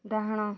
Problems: low volume